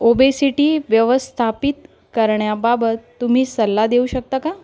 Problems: constant background noise